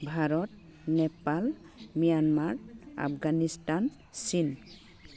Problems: constant background noise